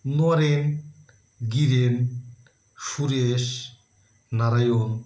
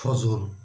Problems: background sounds at intervals